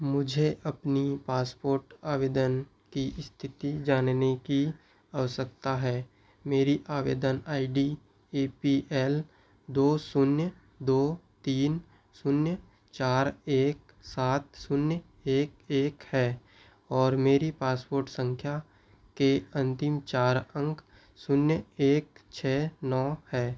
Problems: none marked